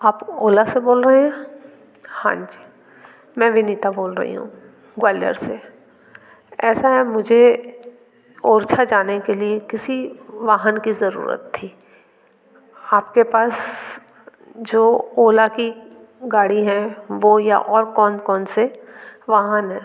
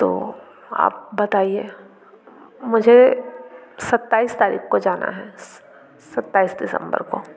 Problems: constant background noise, continuous background conversations